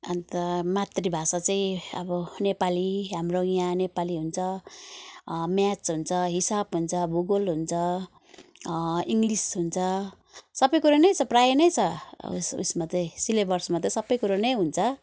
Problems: none marked